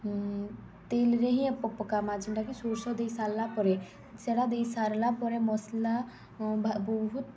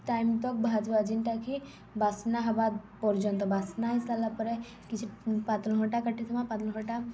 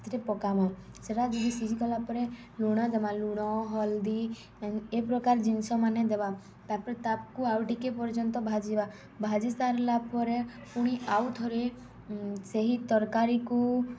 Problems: none marked